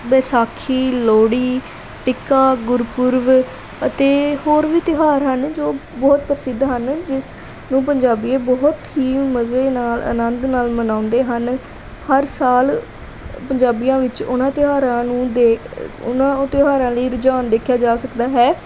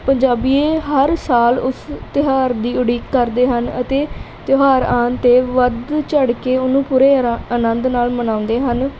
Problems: background sounds at intervals